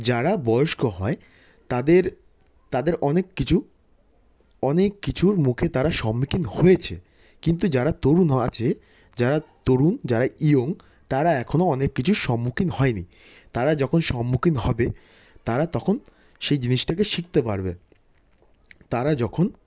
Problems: constant background noise